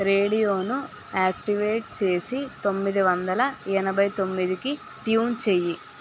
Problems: constant background noise